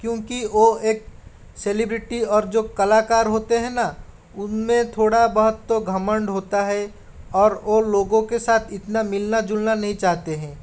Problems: none marked